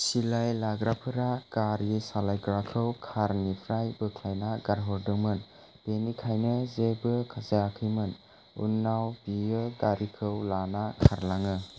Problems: constant background noise